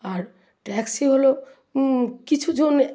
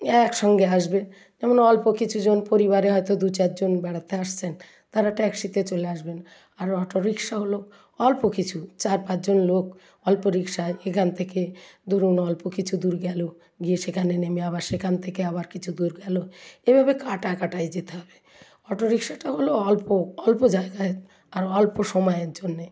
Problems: none marked